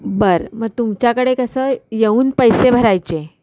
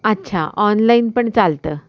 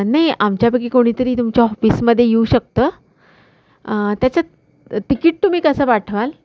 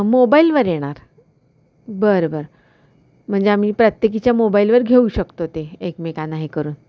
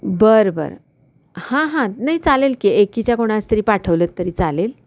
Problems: constant background noise